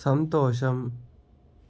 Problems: constant background noise